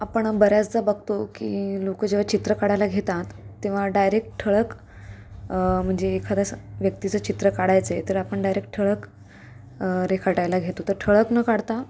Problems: constant background noise, background conversations at intervals